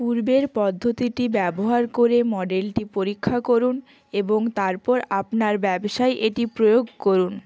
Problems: constant background noise